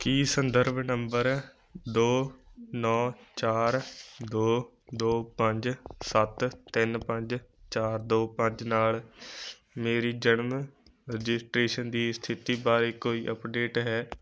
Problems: none marked